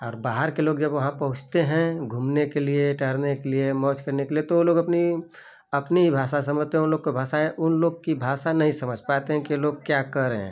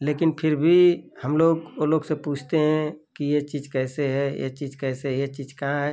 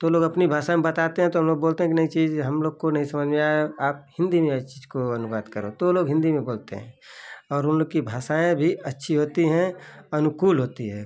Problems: constant background noise